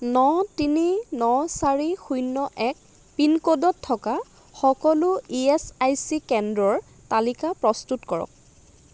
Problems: constant background noise